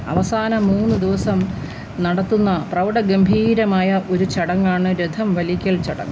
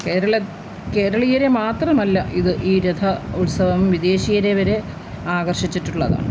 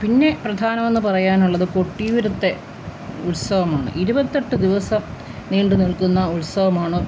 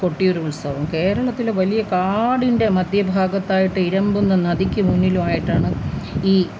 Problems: constant background noise